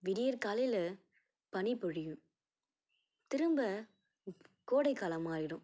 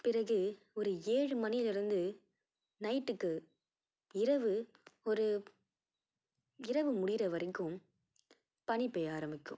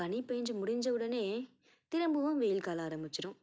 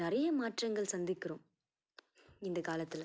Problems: none marked